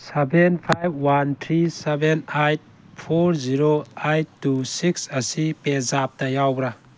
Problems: constant background noise